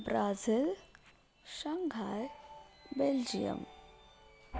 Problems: background sounds at intervals